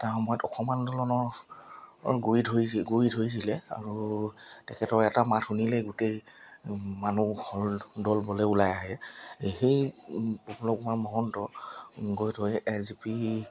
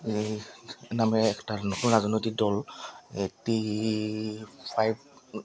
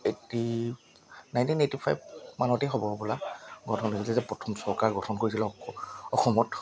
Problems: background sounds at intervals